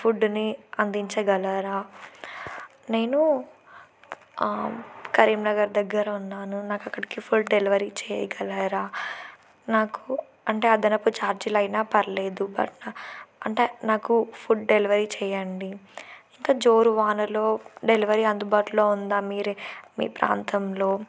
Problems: none marked